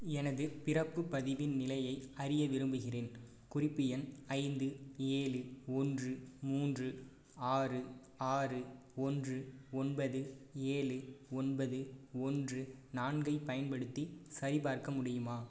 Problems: none marked